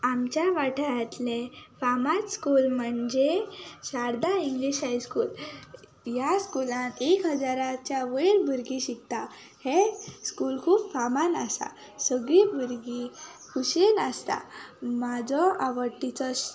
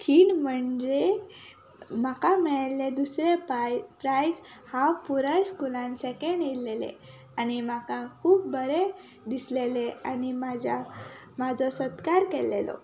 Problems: constant background noise